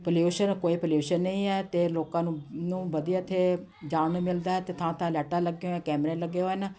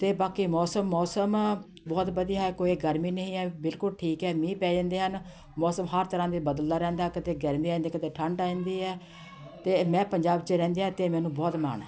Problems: constant background noise, continuous background conversations